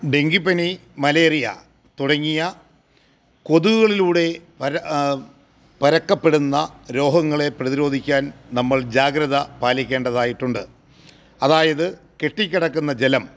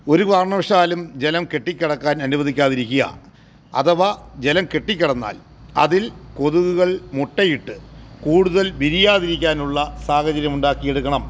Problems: none marked